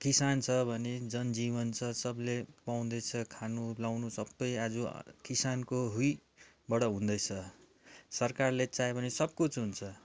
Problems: background sounds at intervals